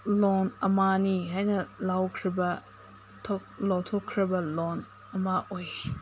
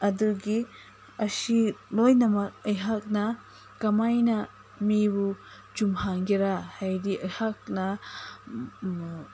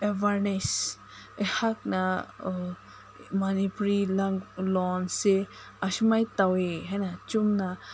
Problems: constant background noise